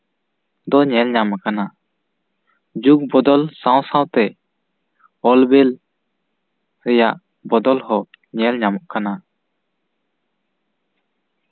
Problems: none marked